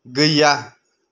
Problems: none marked